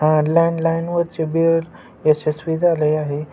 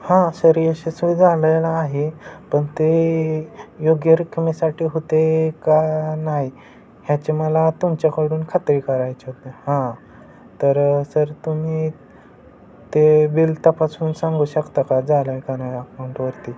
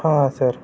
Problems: constant background noise